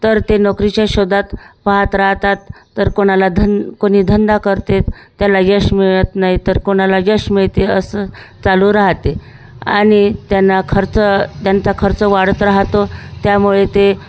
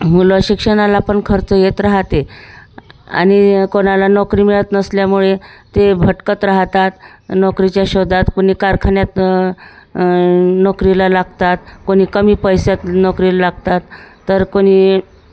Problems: constant background noise, background conversations at intervals